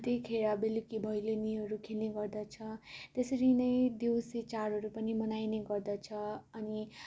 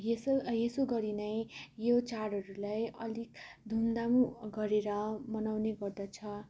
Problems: constant background noise